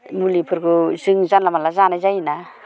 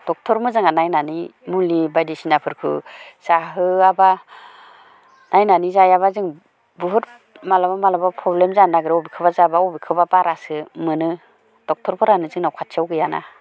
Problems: constant background noise